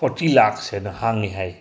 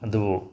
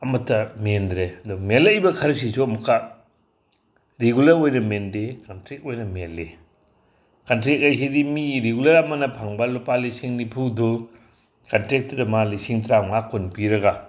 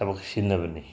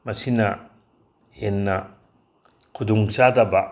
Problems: none marked